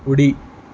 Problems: none marked